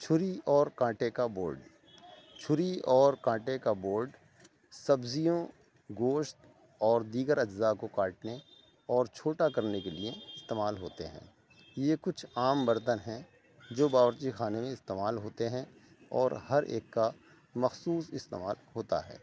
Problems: constant background noise